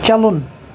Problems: constant background noise